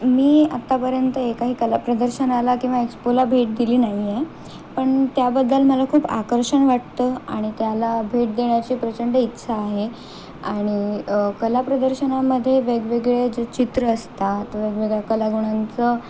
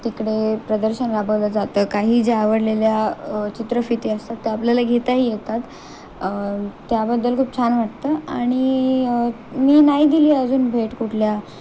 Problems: constant background noise